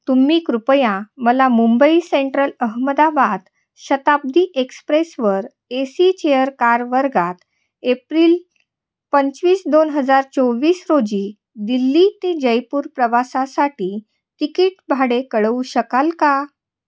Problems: background sounds at intervals, echo